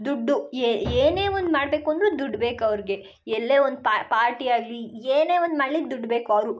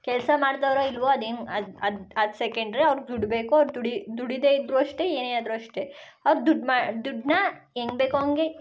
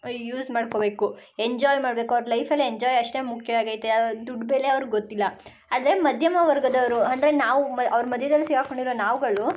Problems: background sounds at intervals